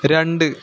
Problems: constant background noise